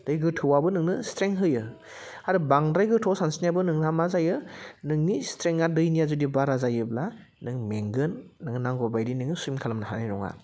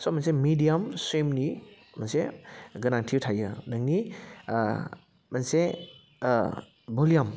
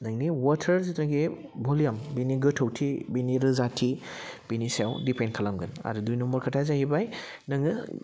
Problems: none marked